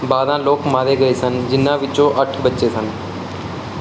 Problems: background sounds at intervals